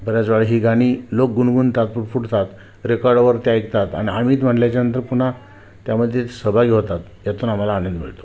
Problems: none marked